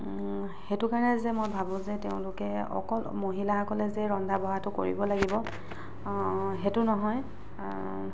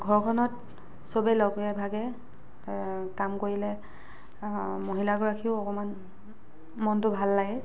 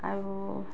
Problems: constant background noise